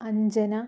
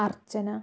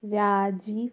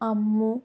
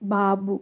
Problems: none marked